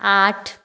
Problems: none marked